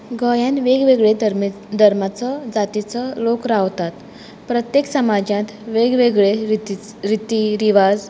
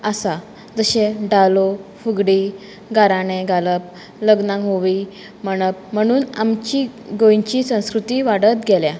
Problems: background sounds at intervals